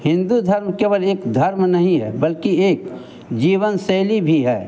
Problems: constant background noise, background conversations at intervals